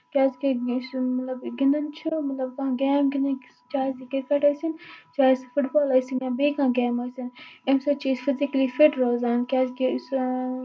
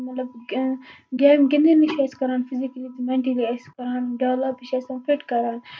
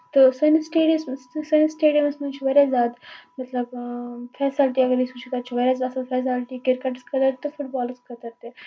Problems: background sounds at intervals